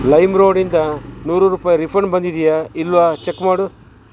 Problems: constant background noise